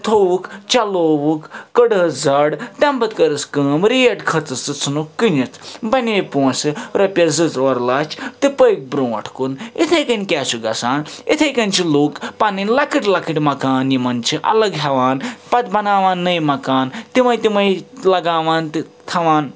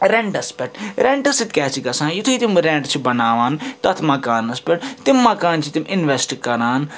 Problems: constant background noise